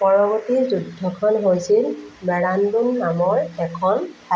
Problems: none marked